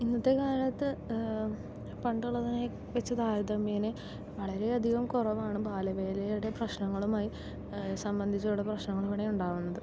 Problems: low volume